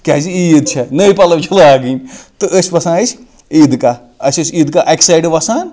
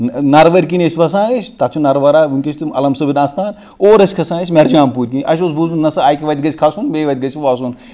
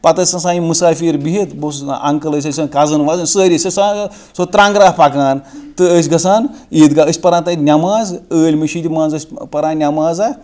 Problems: background sounds at intervals